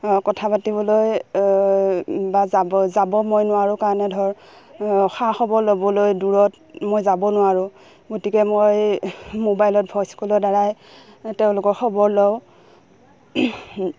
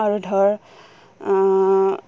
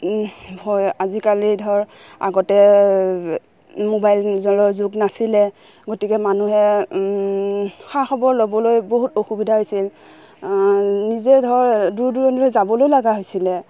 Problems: background sounds at intervals